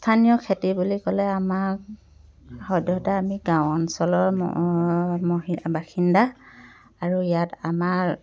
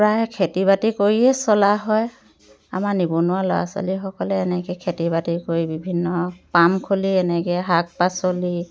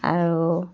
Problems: continuous background conversations